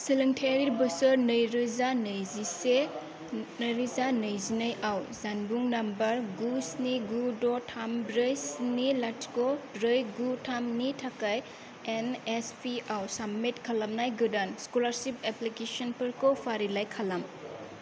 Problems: low volume